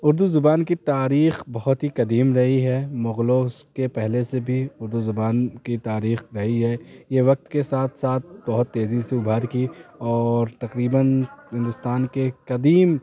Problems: constant background noise